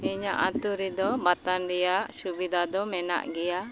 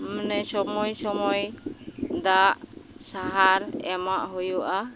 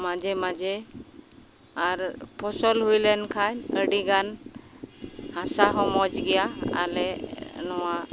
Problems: constant background noise